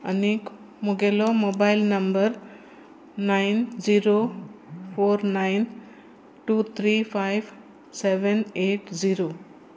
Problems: constant background noise